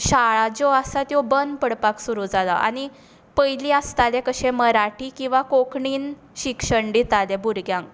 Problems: background sounds at intervals